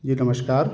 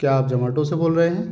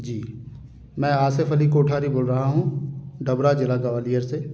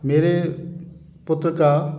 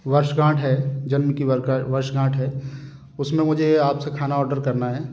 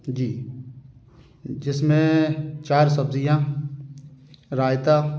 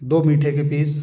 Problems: constant background noise